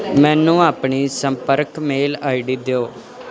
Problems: constant background noise